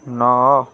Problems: constant background noise, continuous background conversations